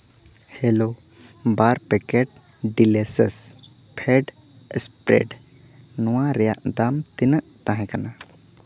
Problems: constant background noise